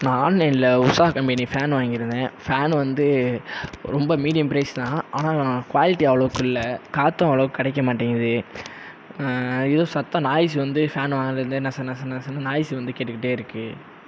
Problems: constant background noise